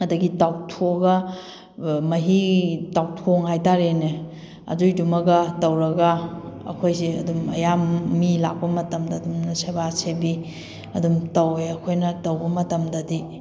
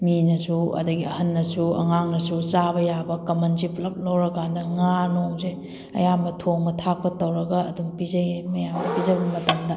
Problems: background sounds at intervals